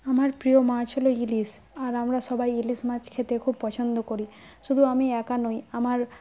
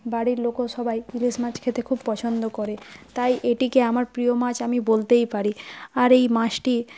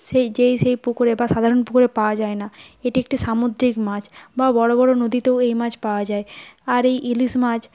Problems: background sounds at intervals